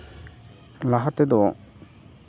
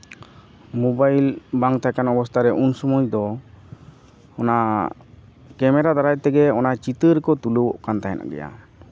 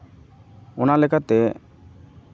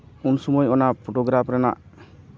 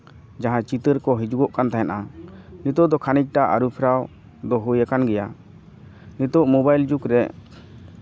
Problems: constant background noise